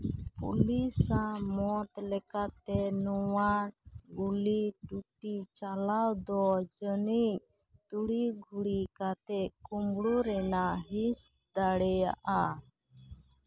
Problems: background sounds at intervals